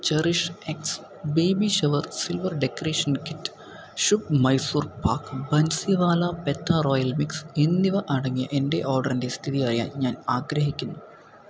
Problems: constant background noise